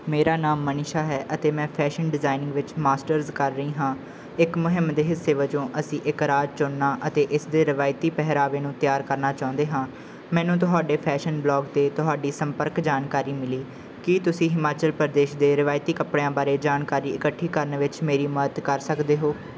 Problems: background sounds at intervals